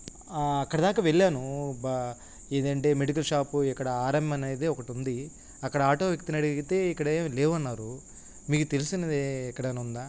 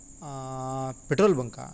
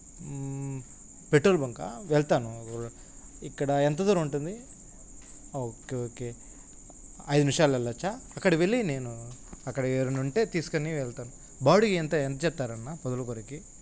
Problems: constant background noise